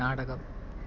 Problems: low volume